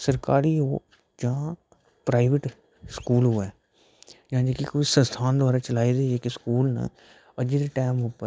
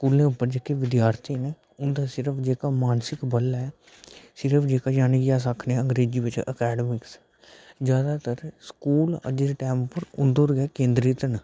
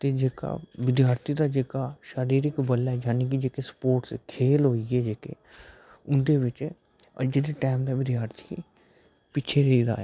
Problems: background sounds at intervals, low volume